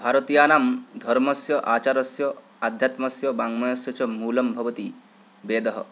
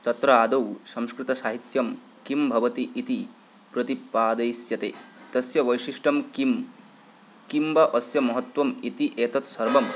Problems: none marked